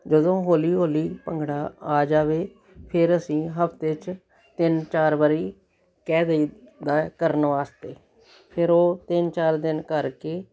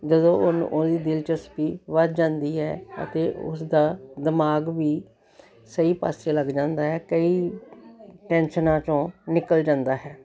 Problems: continuous background conversations